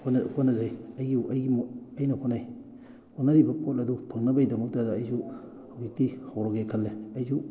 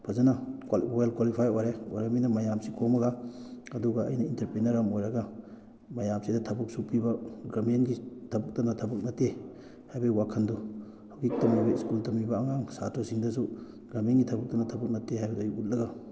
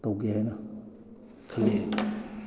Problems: background conversations at intervals